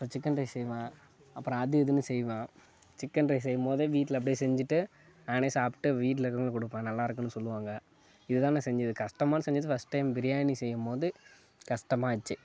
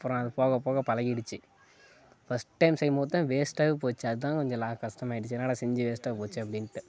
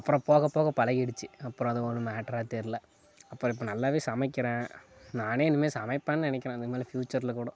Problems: background sounds at intervals, background conversations at intervals